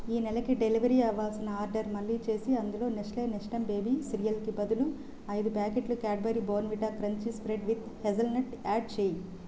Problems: constant background noise